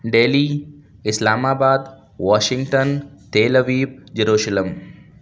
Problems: none marked